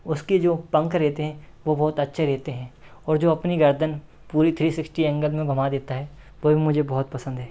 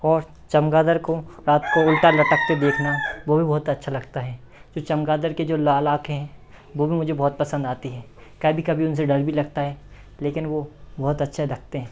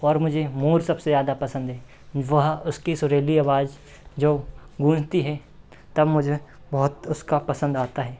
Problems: none marked